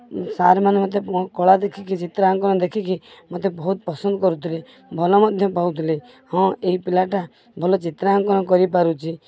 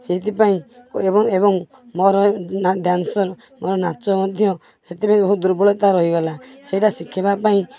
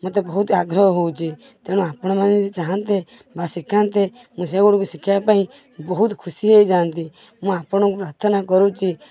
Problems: none marked